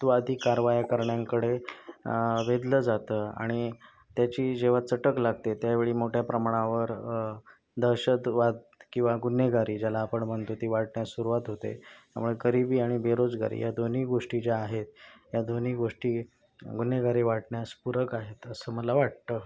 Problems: constant background noise